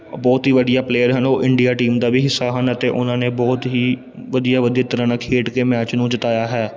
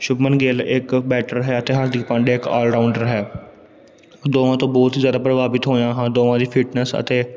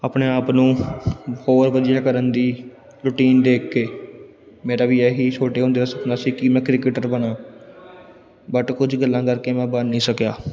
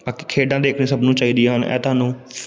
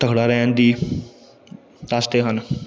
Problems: background sounds at intervals